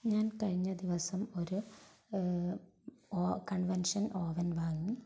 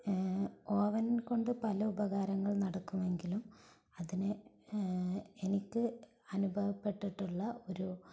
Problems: low volume